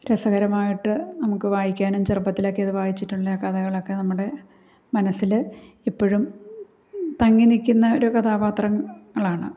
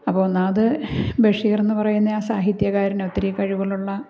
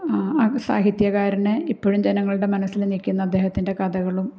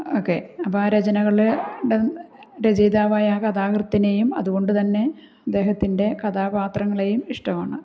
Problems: none marked